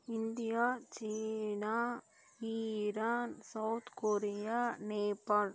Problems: low volume